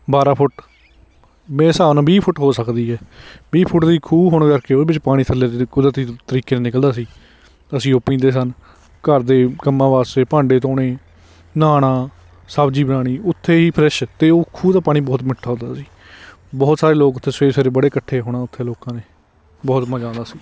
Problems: none marked